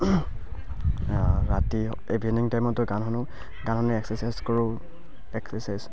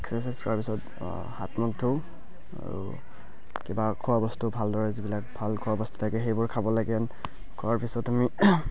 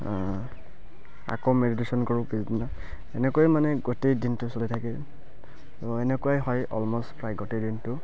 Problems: constant background noise, background conversations at intervals, low volume